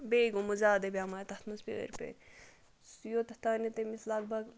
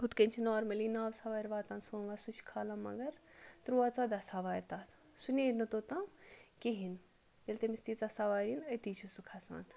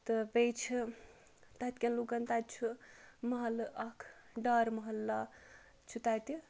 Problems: none marked